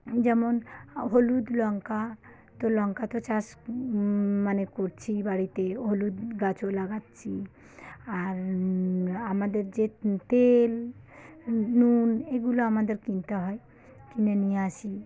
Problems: background sounds at intervals